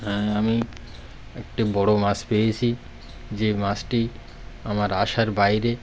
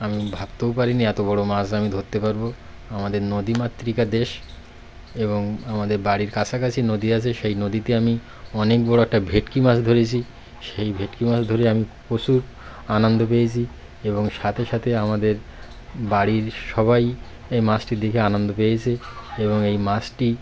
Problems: constant background noise